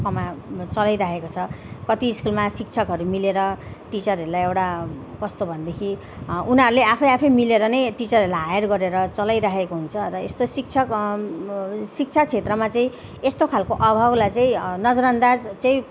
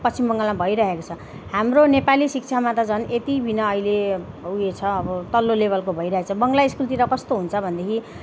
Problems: none marked